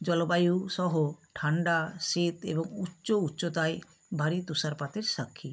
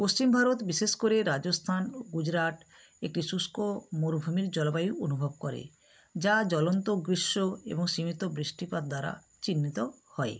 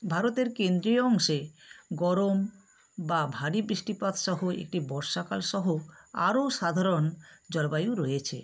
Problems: none marked